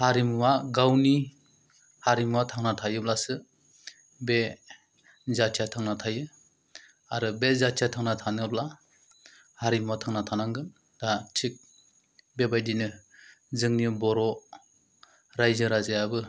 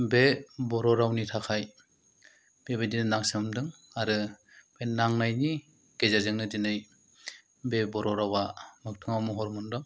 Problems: low volume